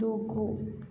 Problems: low volume